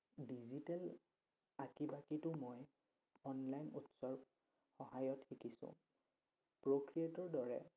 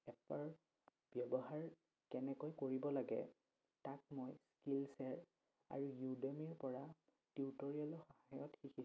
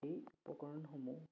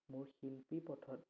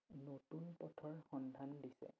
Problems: none marked